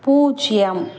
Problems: constant background noise